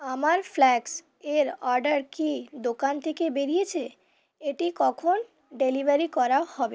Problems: background sounds at intervals